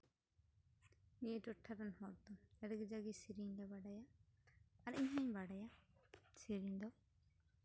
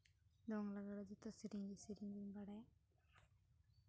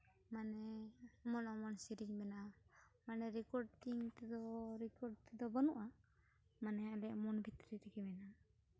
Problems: low volume